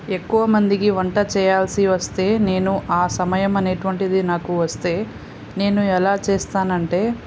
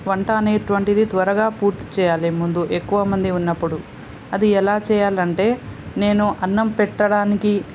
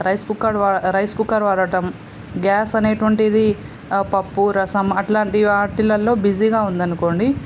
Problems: constant background noise